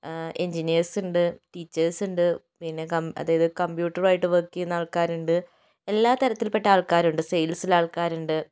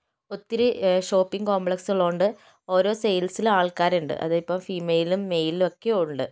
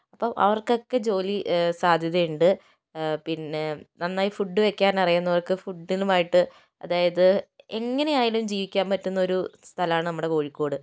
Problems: none marked